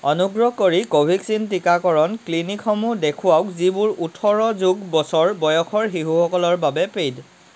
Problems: constant background noise